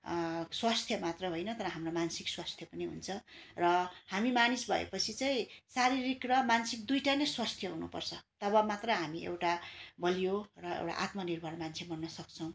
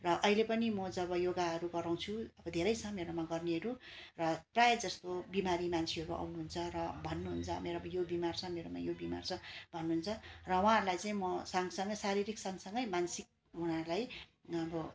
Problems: constant background noise